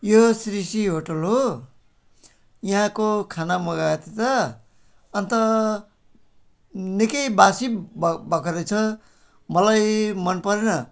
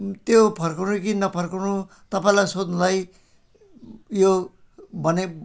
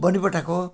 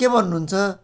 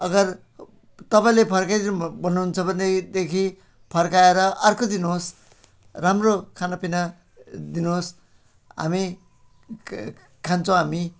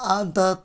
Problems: background sounds at intervals